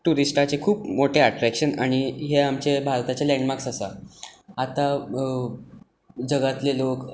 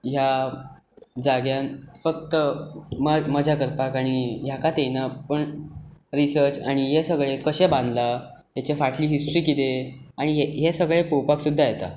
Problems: constant background noise